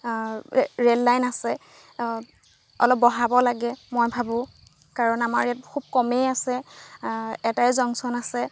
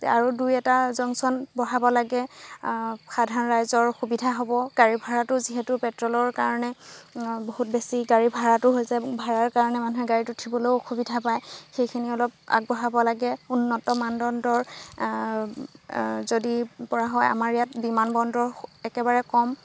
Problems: background sounds at intervals